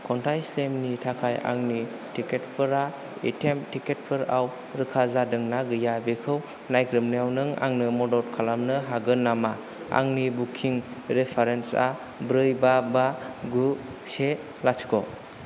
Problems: constant background noise